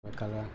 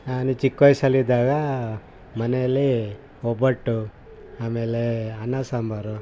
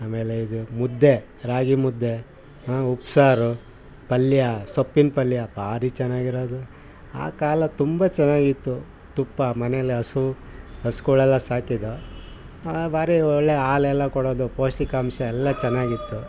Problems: background sounds at intervals